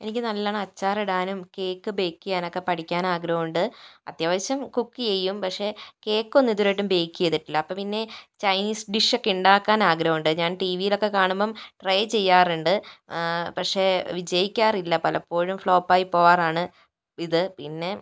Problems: none marked